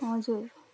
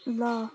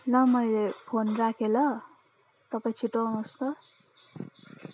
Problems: constant background noise